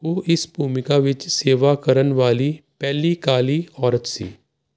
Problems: constant background noise